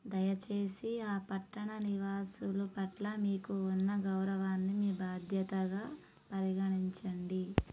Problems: low volume